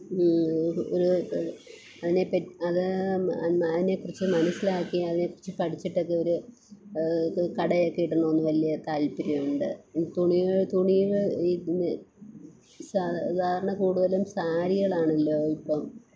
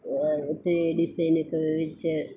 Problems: constant background noise